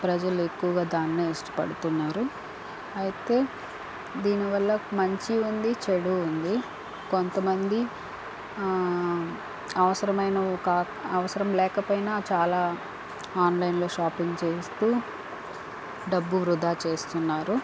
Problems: constant background noise